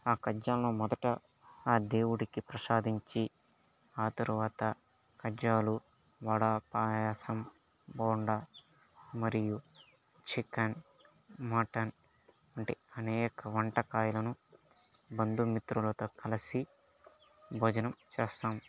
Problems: background sounds at intervals